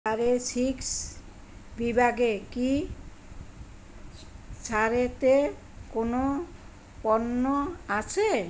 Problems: constant background noise